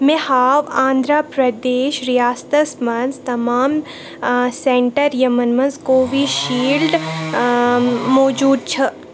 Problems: constant background noise